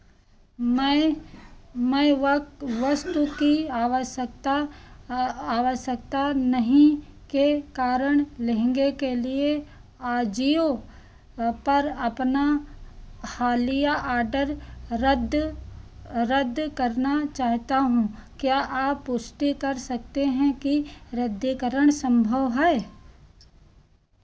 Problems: none marked